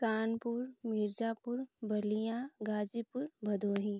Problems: low volume